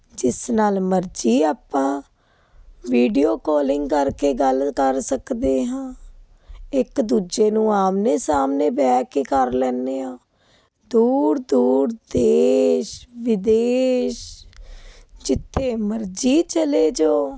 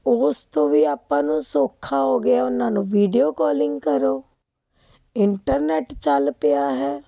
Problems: constant background noise